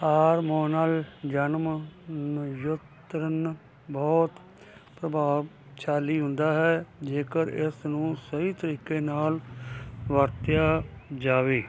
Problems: constant background noise